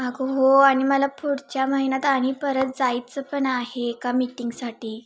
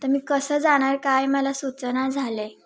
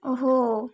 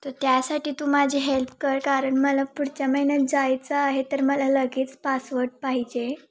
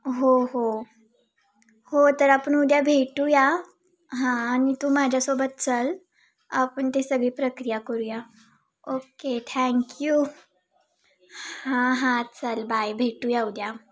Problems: constant background noise, background conversations at intervals